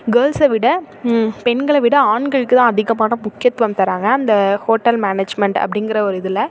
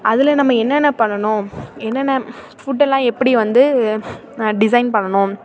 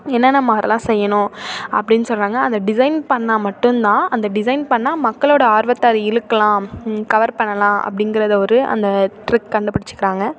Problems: constant background noise, continuous background conversations